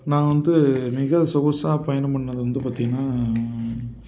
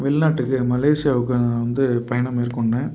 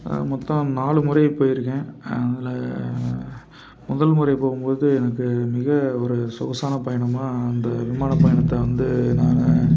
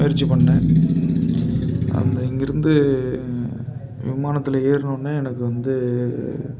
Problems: constant background noise